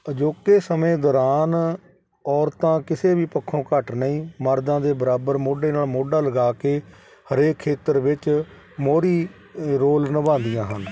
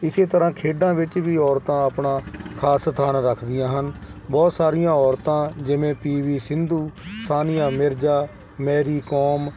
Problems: constant background noise